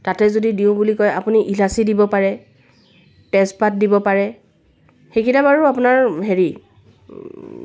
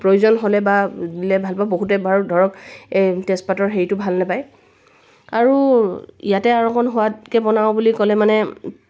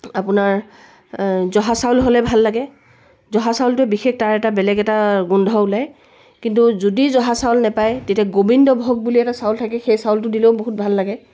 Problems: none marked